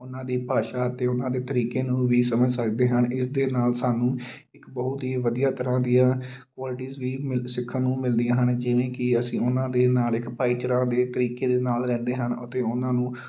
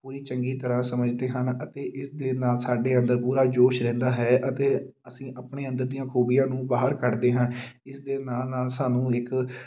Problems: none marked